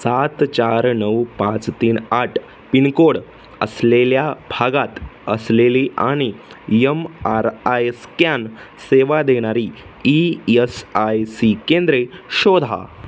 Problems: none marked